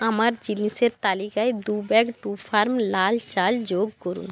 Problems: background sounds at intervals